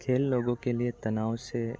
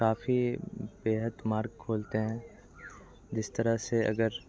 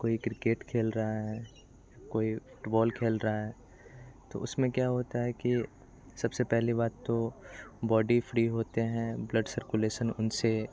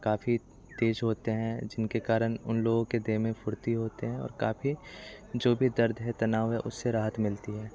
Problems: constant background noise, continuous background conversations